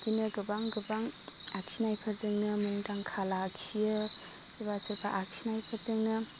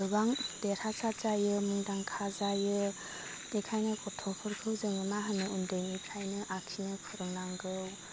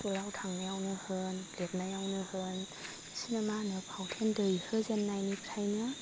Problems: constant background noise